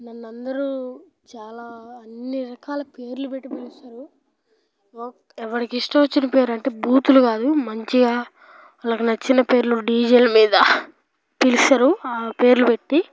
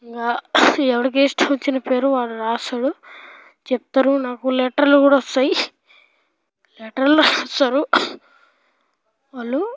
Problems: background sounds at intervals, background conversations at intervals